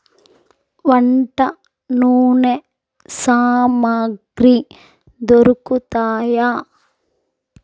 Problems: none marked